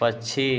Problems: none marked